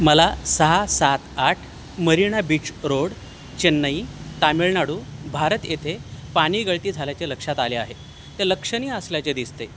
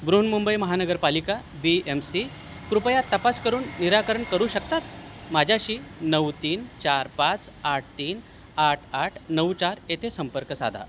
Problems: constant background noise